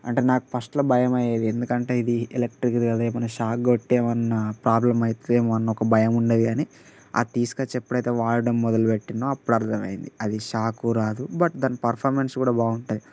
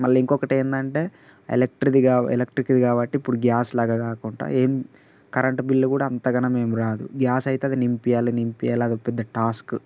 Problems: constant background noise